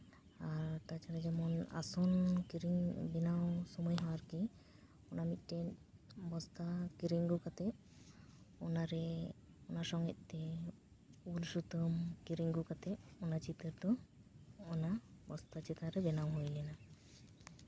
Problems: none marked